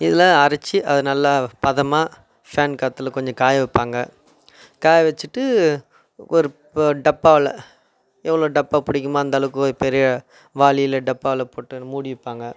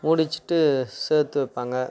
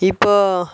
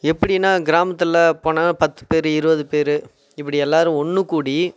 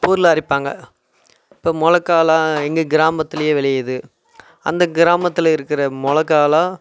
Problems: none marked